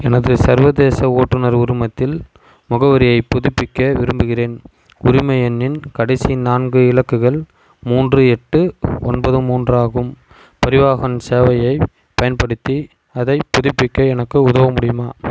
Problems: constant background noise